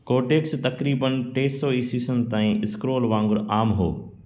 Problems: constant background noise, echo